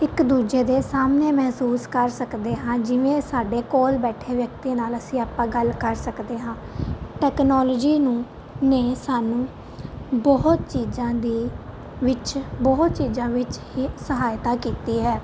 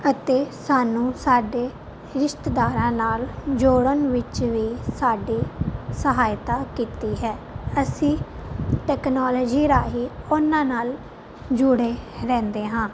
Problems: constant background noise